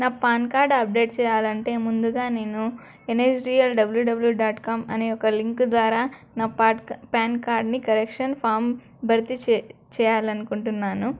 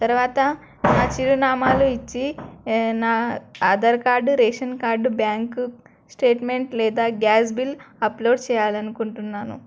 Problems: none marked